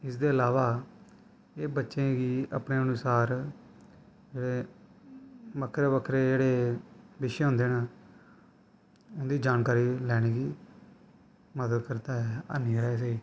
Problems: constant background noise